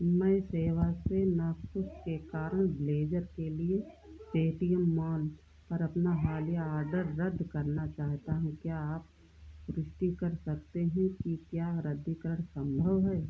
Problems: low volume